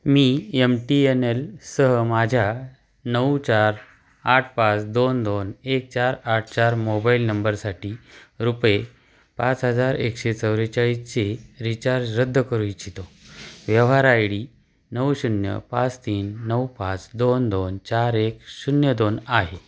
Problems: background sounds at intervals